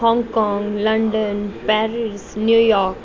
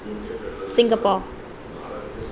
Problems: continuous background conversations